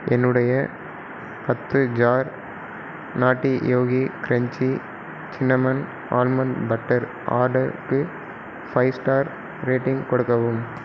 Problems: constant background noise